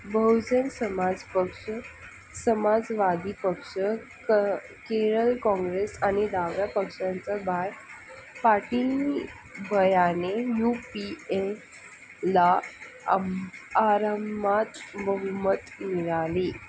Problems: constant background noise